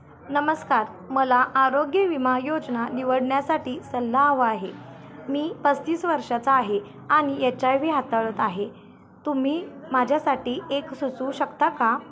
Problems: constant background noise, continuous background conversations